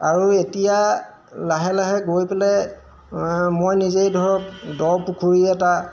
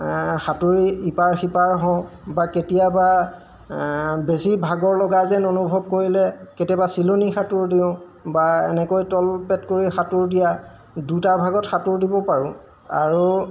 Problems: none marked